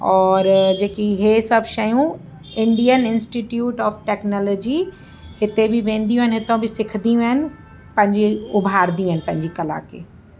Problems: constant background noise